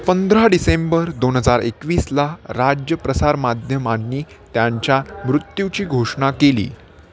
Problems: constant background noise, continuous background conversations